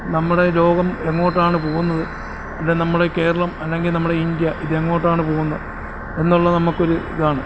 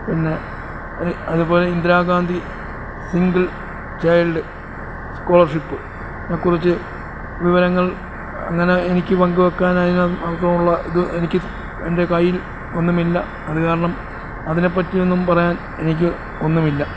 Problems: constant background noise